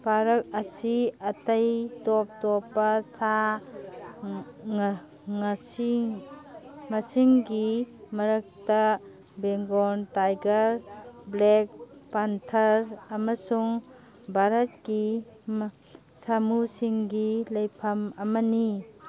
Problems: background sounds at intervals